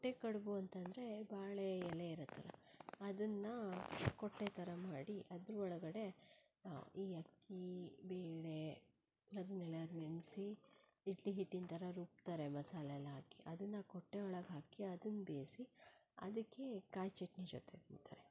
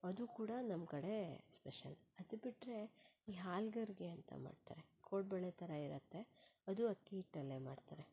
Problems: low volume